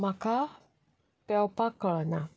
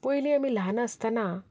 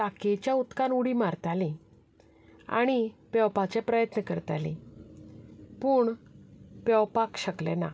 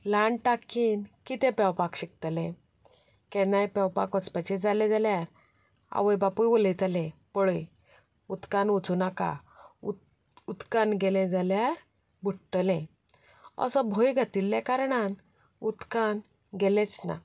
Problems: background sounds at intervals